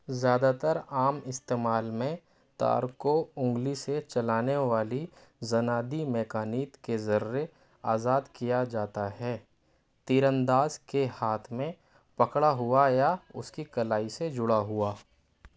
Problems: background sounds at intervals